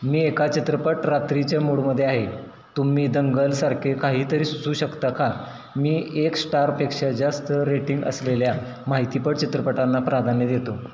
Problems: constant background noise